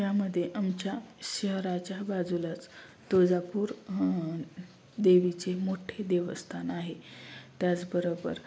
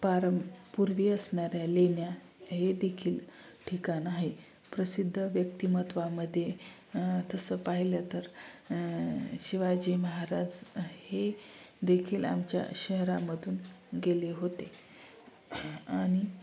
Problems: none marked